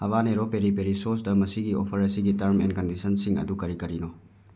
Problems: none marked